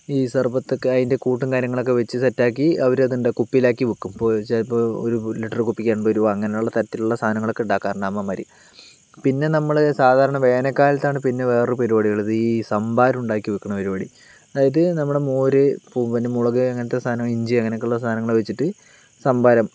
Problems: background sounds at intervals